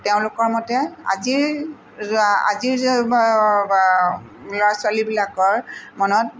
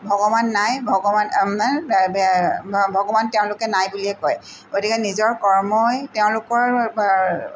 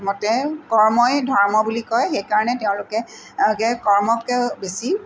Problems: background sounds at intervals